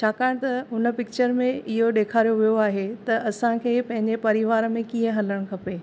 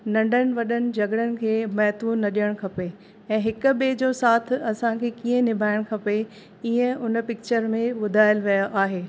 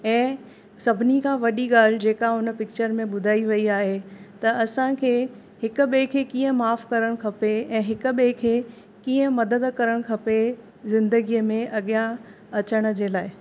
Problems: constant background noise